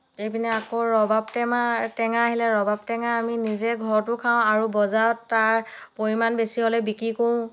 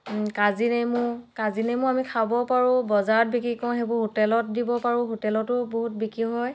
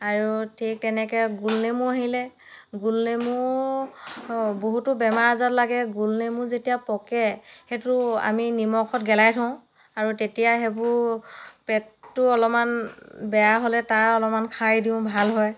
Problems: background sounds at intervals